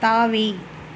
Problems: constant background noise